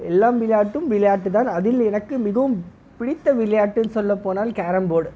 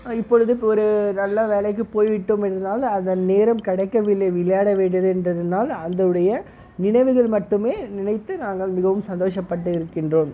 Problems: none marked